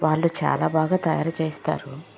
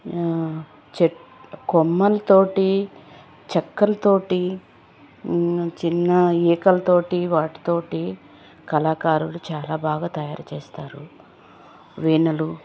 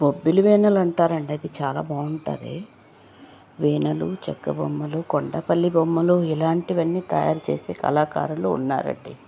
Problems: none marked